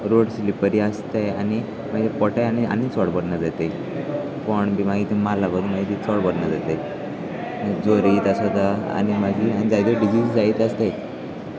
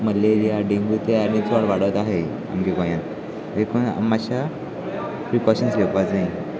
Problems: constant background noise, continuous background conversations